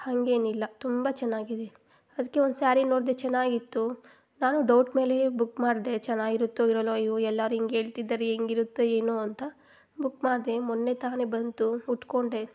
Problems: none marked